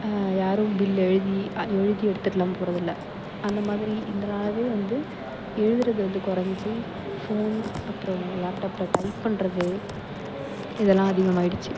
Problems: background sounds at intervals, low volume